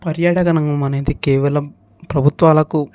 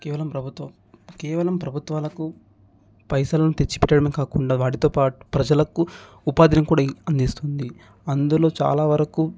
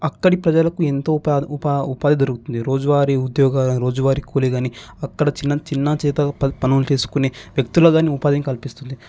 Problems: background sounds at intervals